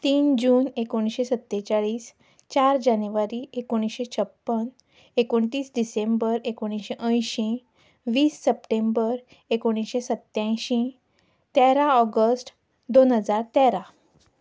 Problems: background sounds at intervals